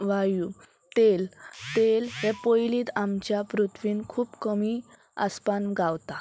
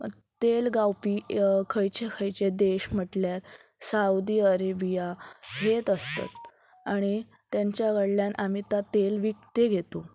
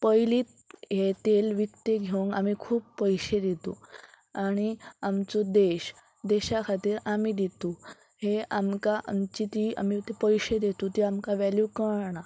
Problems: none marked